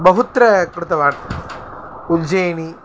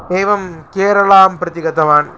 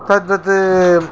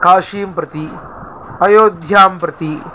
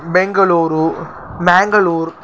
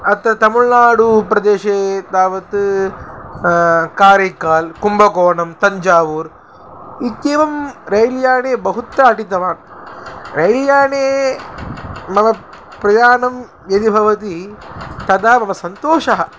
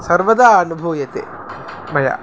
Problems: constant background noise